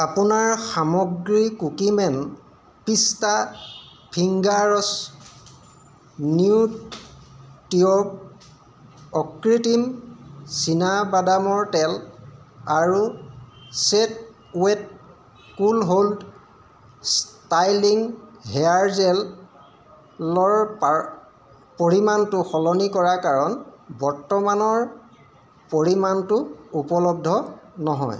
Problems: constant background noise